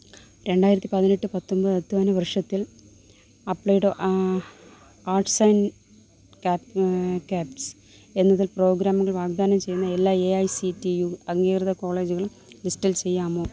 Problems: low volume